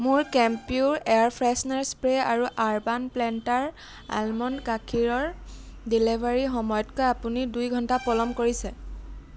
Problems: background sounds at intervals